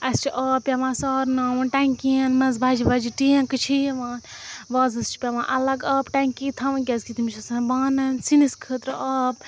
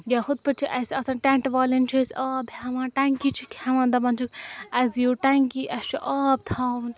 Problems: constant background noise